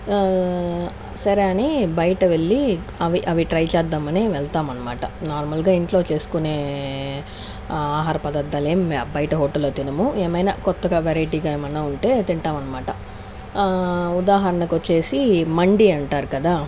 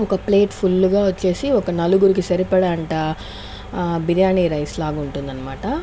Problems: constant background noise